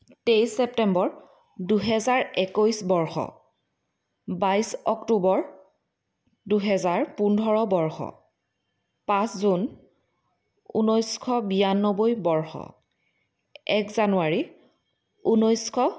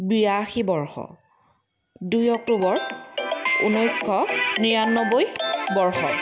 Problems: background sounds at intervals